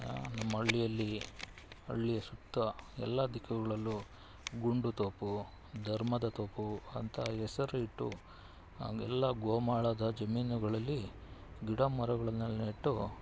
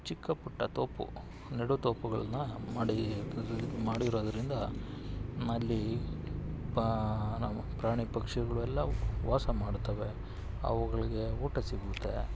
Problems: none marked